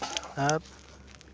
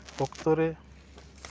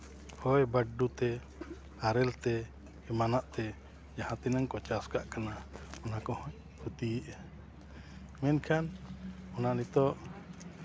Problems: constant background noise